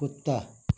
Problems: none marked